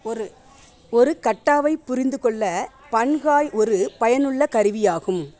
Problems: background conversations at intervals